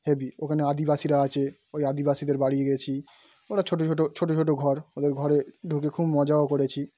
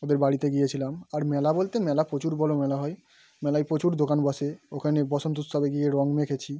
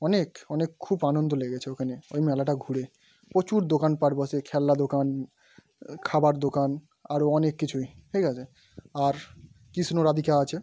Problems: background sounds at intervals